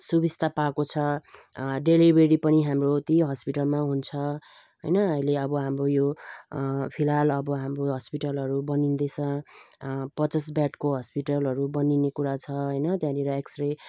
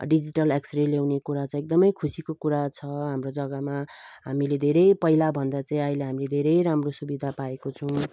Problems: none marked